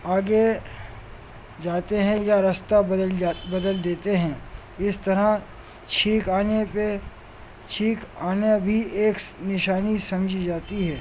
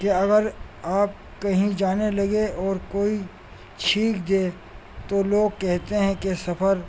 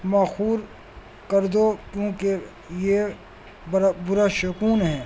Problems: constant background noise